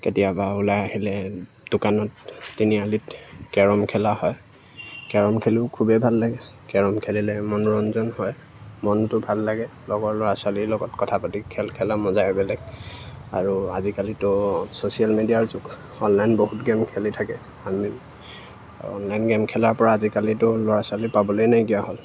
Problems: none marked